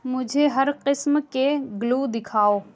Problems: low volume